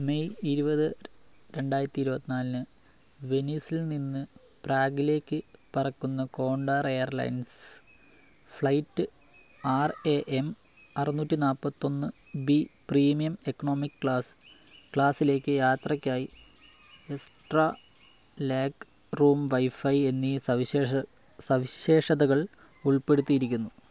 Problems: low volume